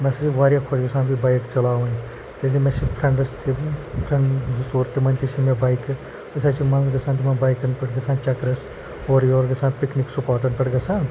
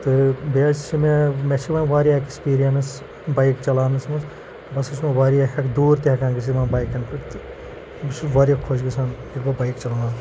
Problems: constant background noise, low volume